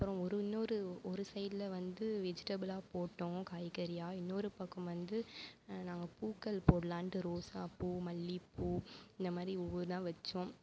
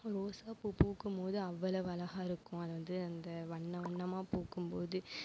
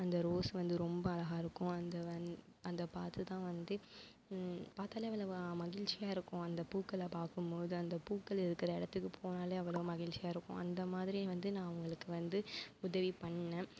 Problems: none marked